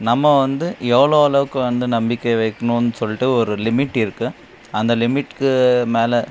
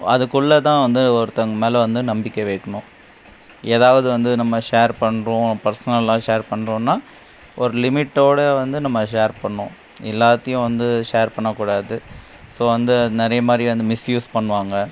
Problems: constant background noise